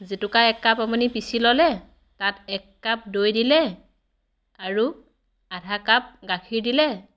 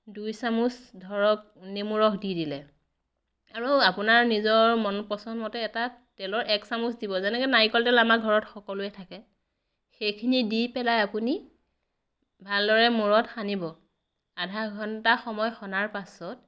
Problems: none marked